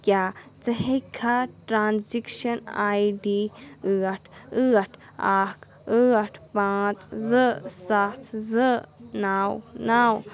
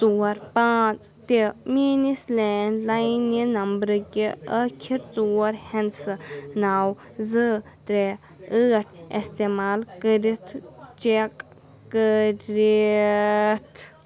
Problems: continuous background conversations